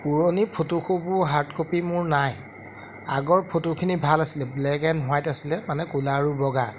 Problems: background sounds at intervals